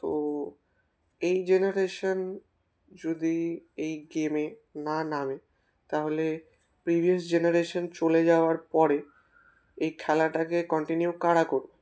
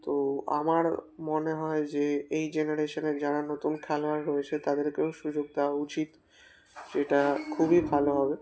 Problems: constant background noise